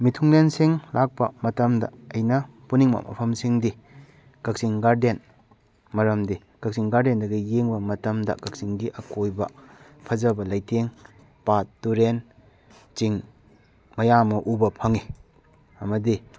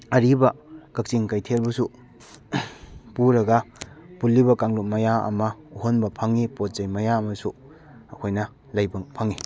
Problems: background sounds at intervals